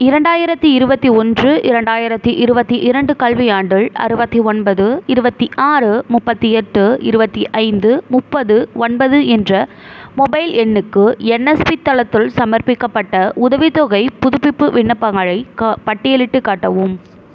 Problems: none marked